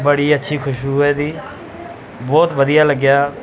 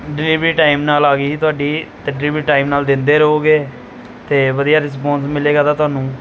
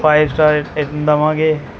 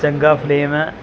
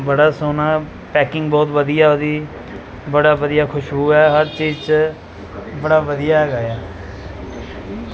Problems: background sounds at intervals